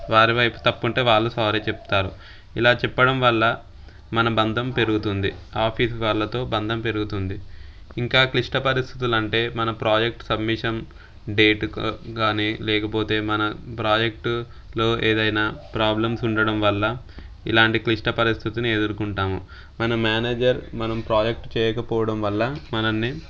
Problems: background sounds at intervals